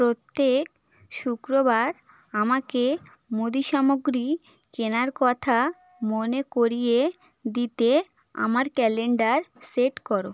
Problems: background sounds at intervals